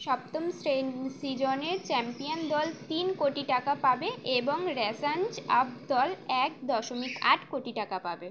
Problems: background sounds at intervals